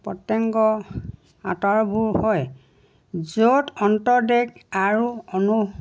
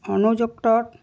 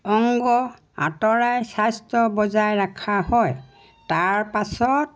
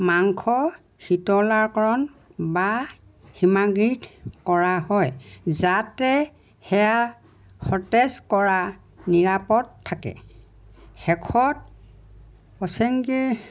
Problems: none marked